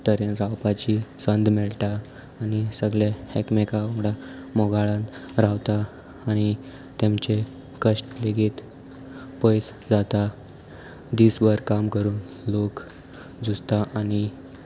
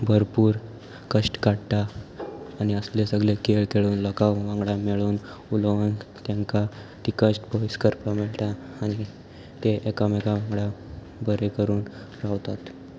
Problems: none marked